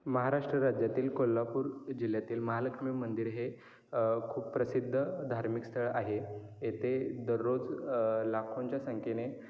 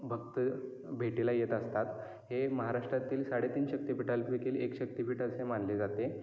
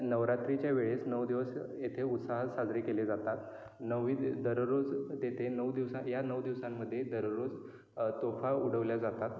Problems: background sounds at intervals